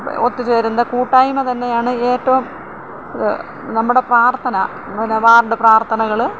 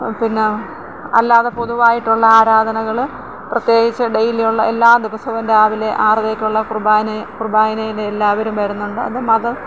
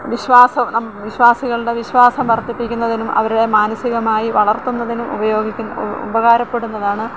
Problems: constant background noise